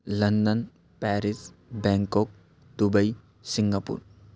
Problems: none marked